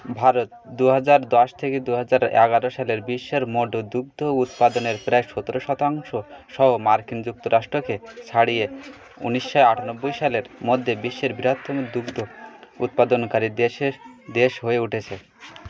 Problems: continuous background conversations